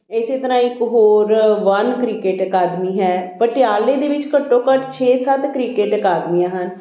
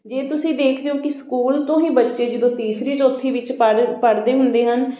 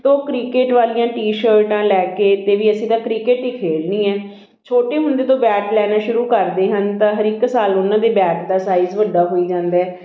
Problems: none marked